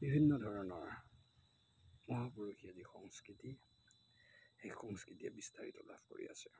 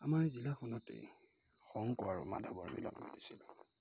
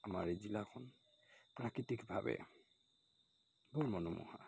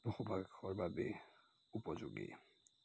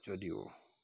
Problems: constant background noise